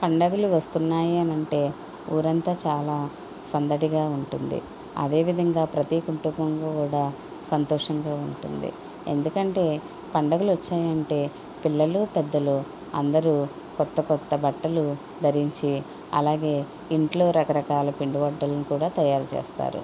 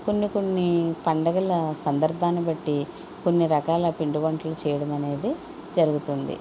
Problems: none marked